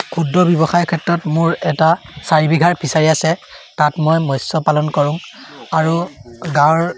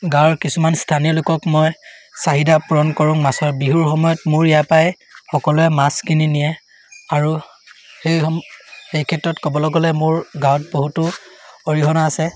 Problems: none marked